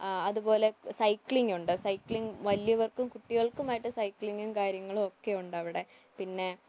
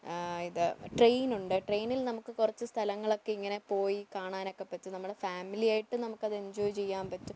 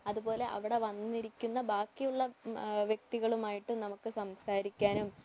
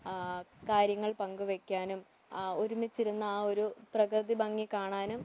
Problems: constant background noise, low volume